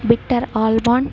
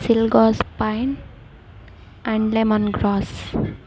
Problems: background conversations at intervals